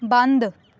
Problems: background sounds at intervals